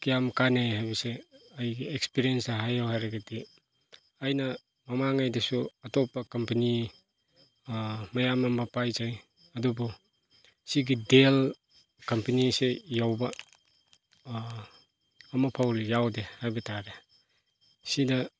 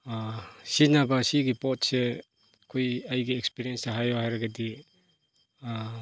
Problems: none marked